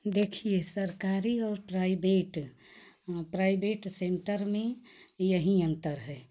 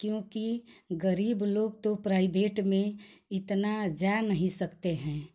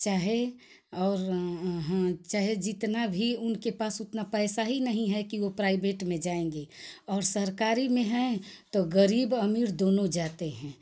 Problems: constant background noise